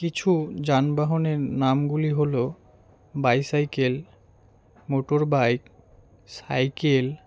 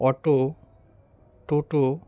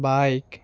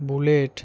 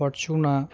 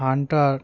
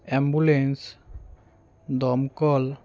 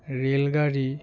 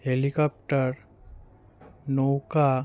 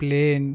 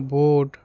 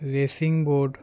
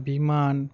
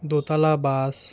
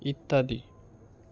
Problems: none marked